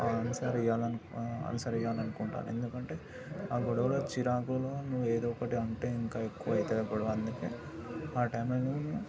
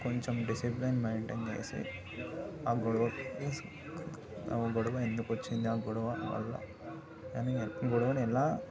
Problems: background sounds at intervals, background conversations at intervals